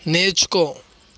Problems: none marked